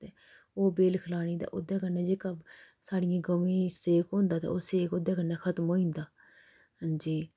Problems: none marked